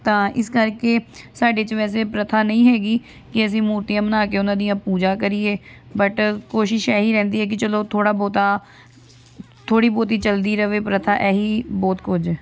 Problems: constant background noise